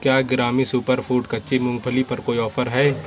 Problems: none marked